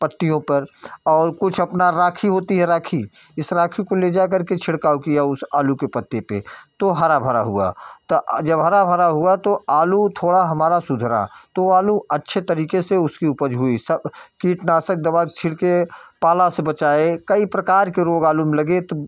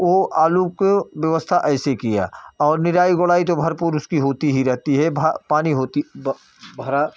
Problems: background sounds at intervals